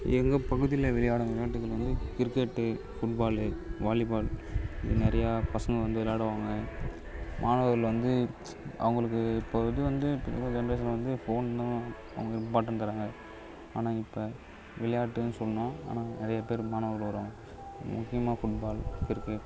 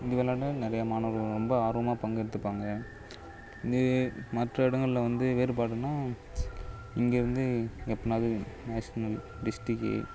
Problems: constant background noise